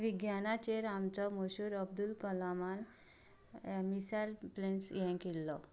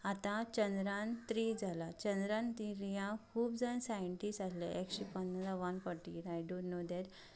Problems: background sounds at intervals, background conversations at intervals